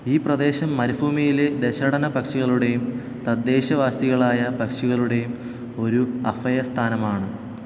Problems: none marked